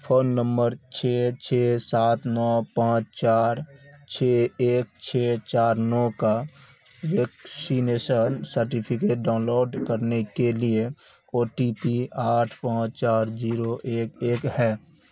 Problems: constant background noise